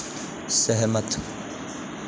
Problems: constant background noise